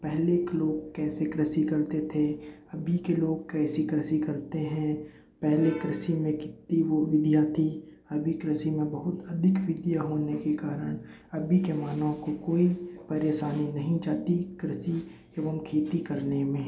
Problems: background sounds at intervals, low volume